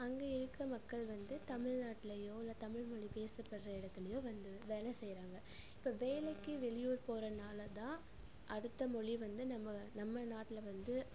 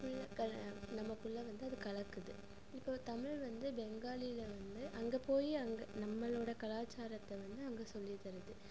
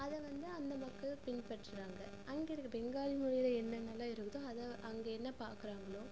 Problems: constant background noise